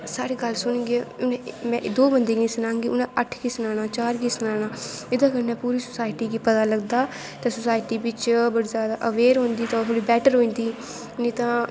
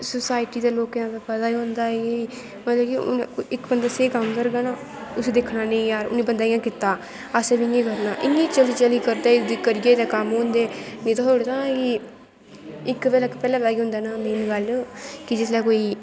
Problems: constant background noise